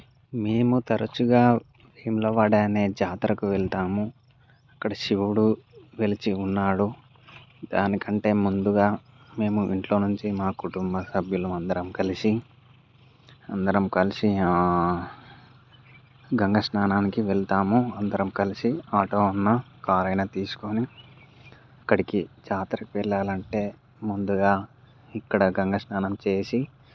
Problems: background sounds at intervals